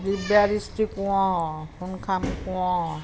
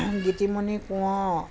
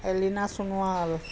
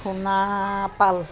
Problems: constant background noise